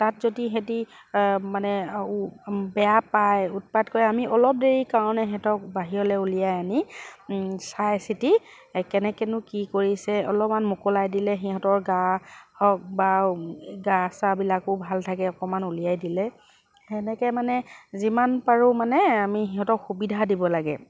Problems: none marked